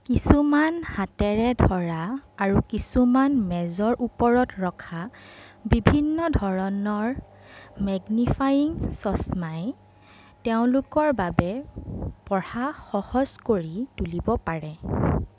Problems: background sounds at intervals